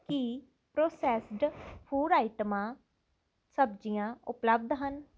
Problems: none marked